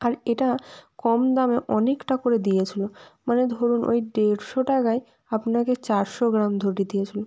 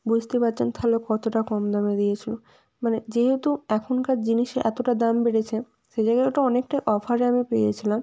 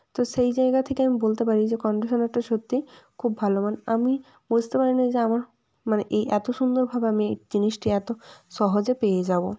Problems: none marked